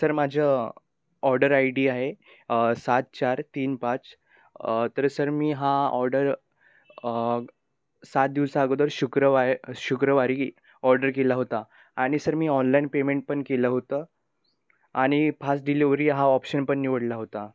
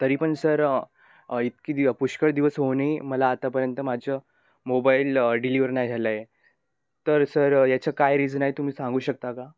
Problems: constant background noise